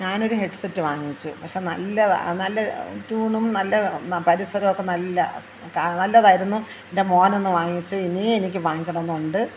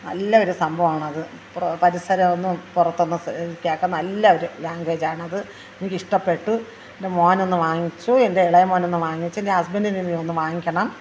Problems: background conversations at intervals